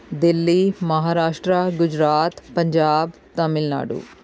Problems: constant background noise